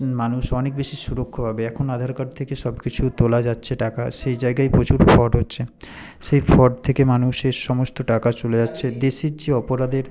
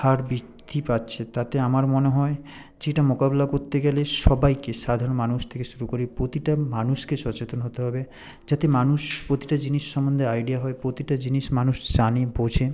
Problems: none marked